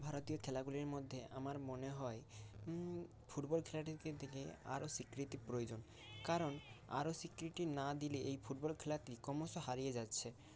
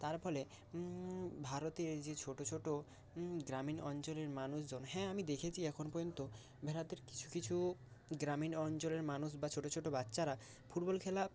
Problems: constant background noise